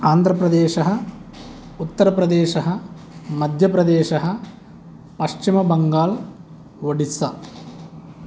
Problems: constant background noise